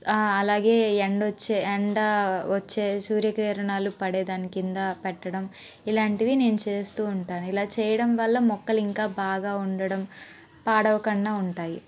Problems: background sounds at intervals